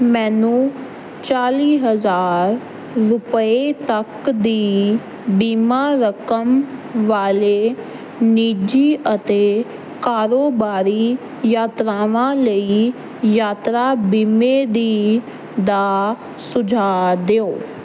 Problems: none marked